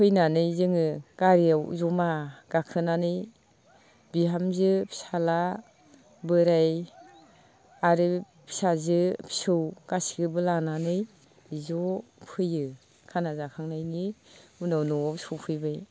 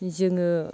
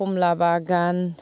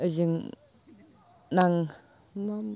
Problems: constant background noise